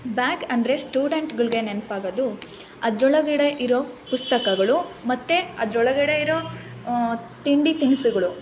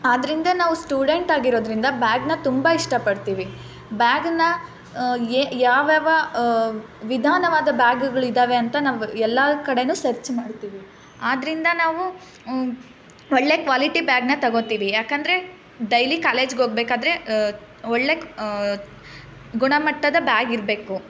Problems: none marked